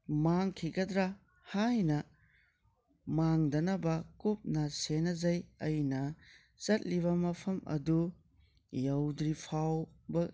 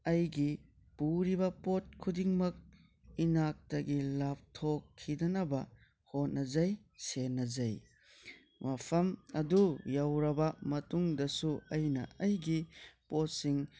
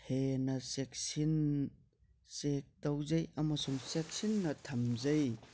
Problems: none marked